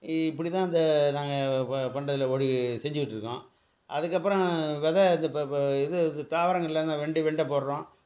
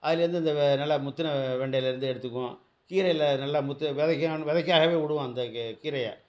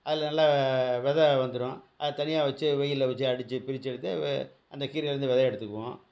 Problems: background sounds at intervals